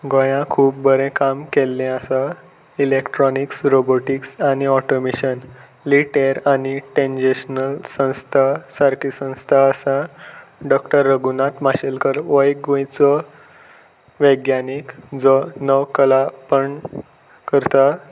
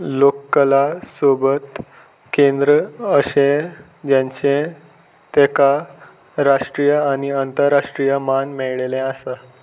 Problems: constant background noise